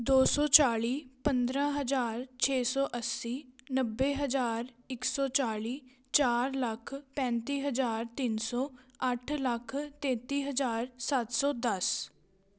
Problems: none marked